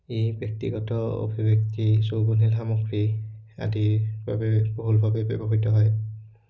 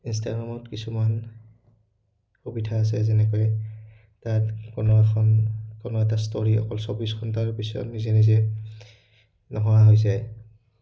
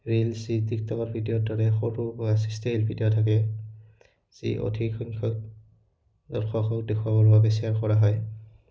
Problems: background sounds at intervals